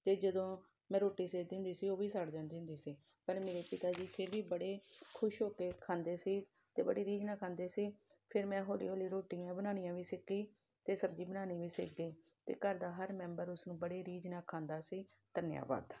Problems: none marked